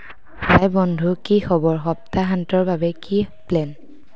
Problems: background sounds at intervals